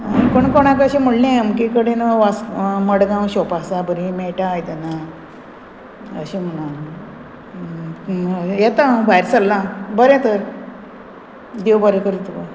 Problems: constant background noise